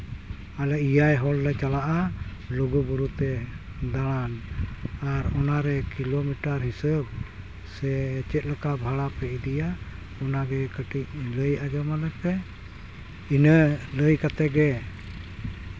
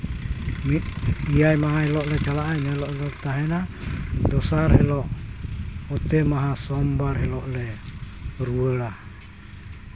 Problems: constant background noise